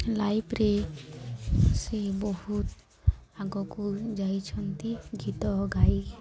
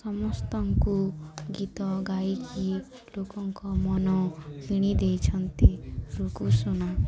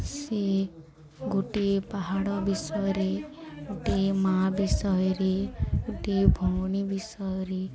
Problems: constant background noise, continuous background conversations